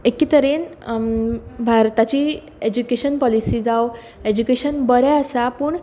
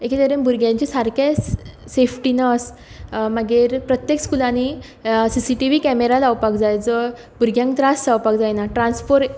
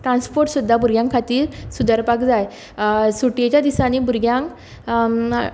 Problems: none marked